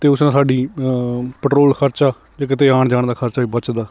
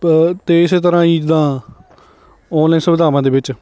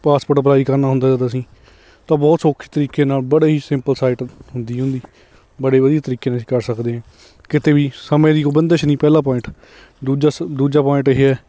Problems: none marked